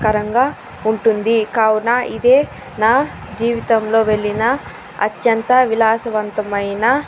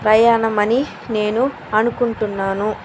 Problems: constant background noise